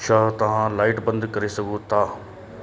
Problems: constant background noise